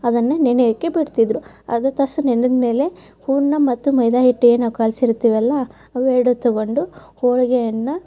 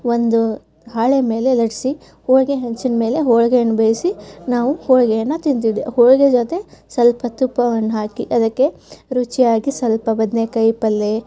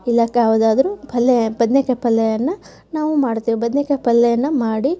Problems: background sounds at intervals, background conversations at intervals